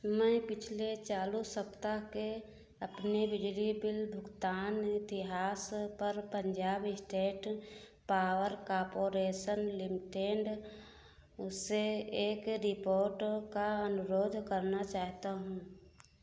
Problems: background sounds at intervals